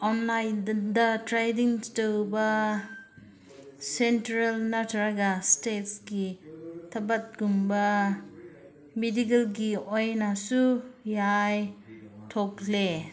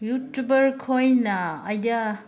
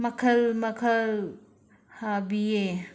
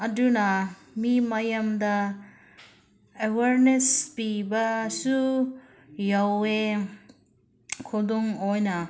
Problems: background conversations at intervals